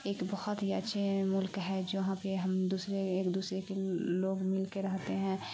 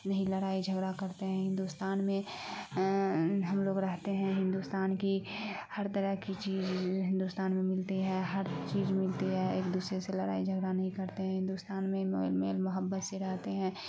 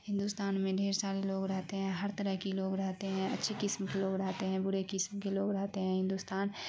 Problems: constant background noise